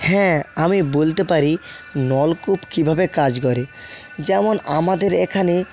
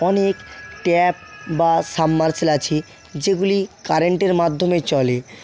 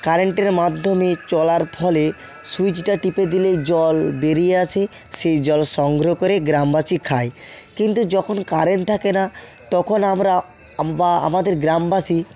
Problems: constant background noise